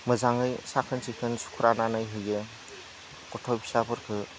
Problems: none marked